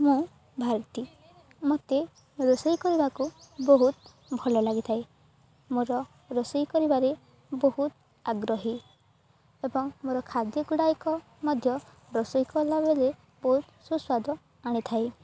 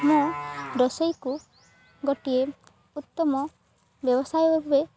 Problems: constant background noise